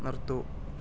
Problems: low volume